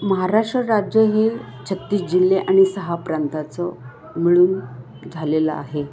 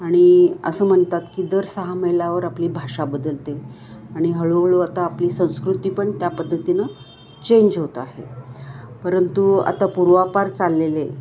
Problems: constant background noise, background conversations at intervals